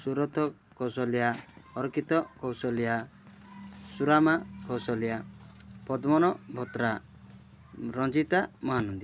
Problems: background conversations at intervals